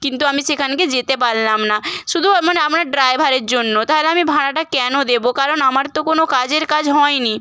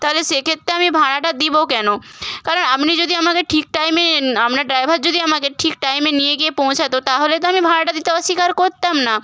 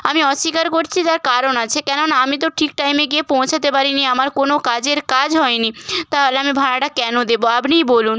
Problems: none marked